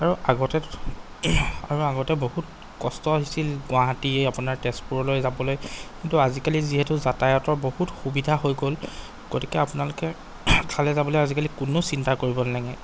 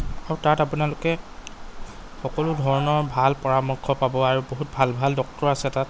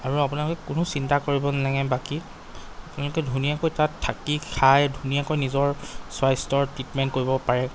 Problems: background sounds at intervals